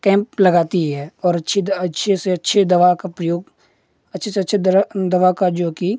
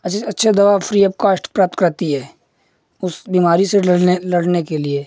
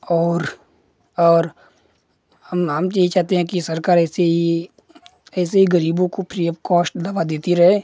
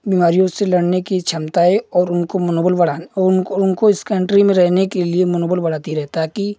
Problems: none marked